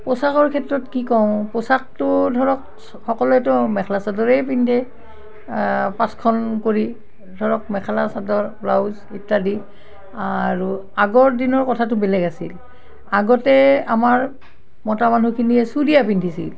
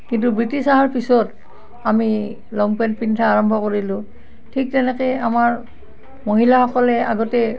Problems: none marked